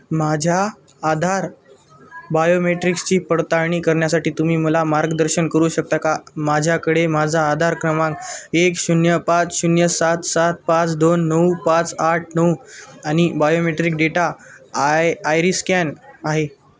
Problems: none marked